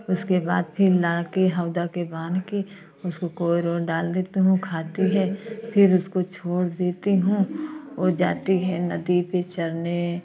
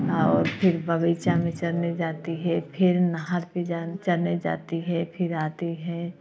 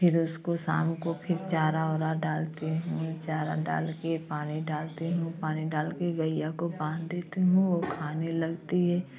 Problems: none marked